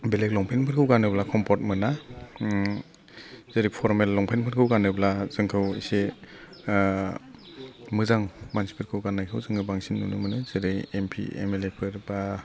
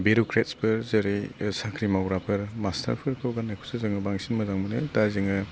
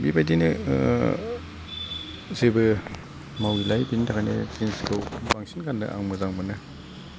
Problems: constant background noise